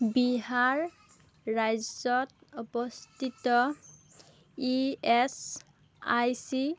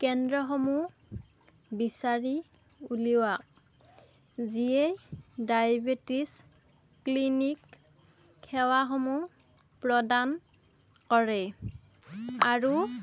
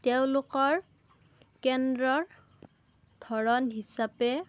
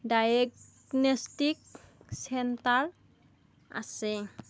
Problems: none marked